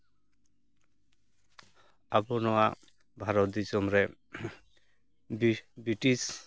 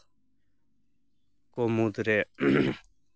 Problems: none marked